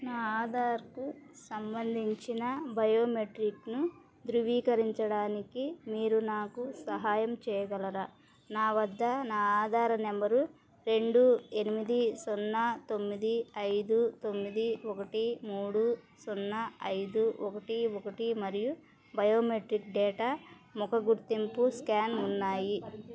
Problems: background sounds at intervals, background conversations at intervals